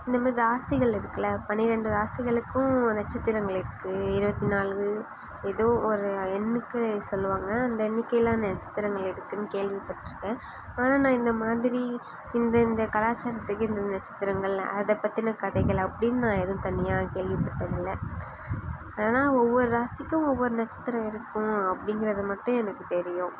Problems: background sounds at intervals